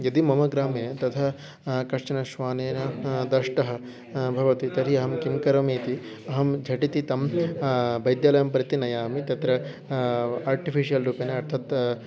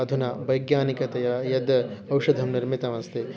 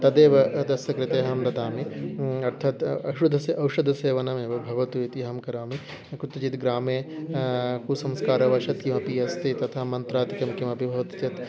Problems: background sounds at intervals